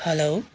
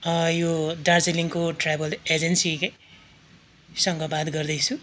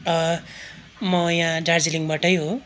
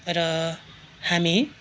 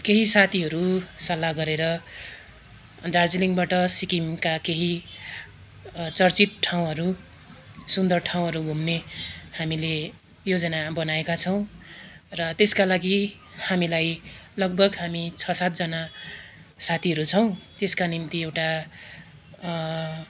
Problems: constant background noise